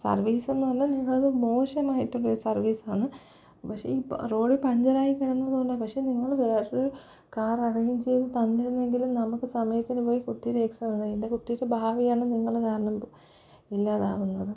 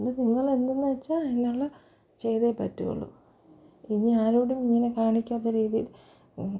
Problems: low volume